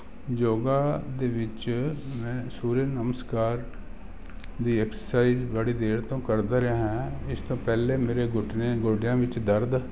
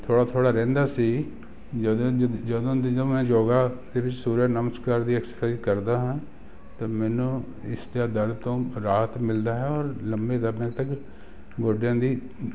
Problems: none marked